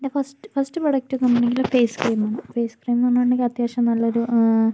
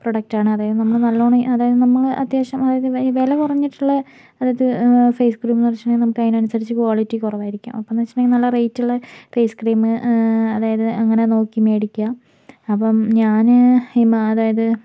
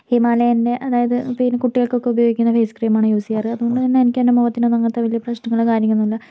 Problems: background sounds at intervals